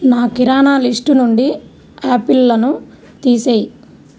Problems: none marked